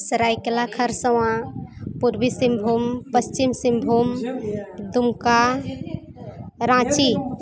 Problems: continuous background conversations